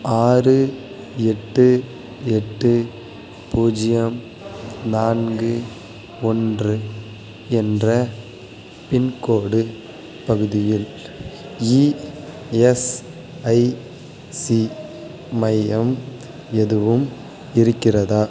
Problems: constant background noise